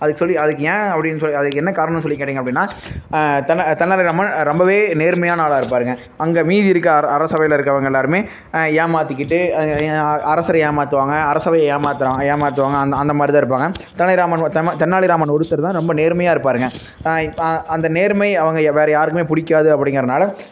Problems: constant background noise